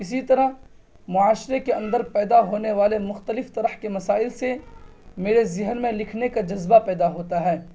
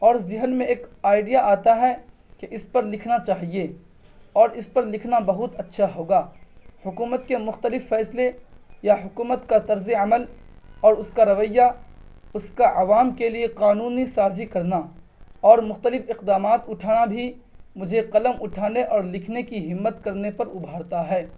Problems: none marked